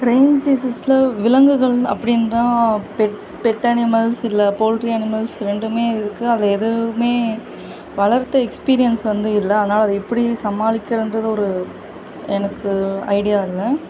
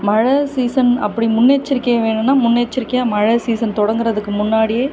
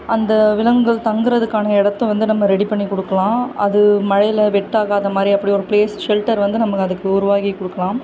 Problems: constant background noise